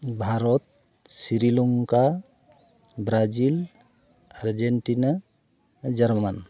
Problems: none marked